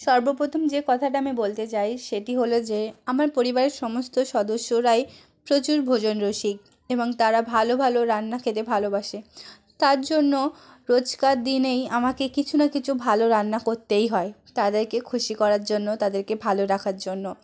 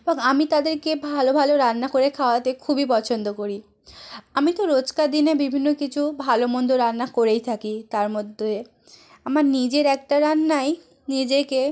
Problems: background conversations at intervals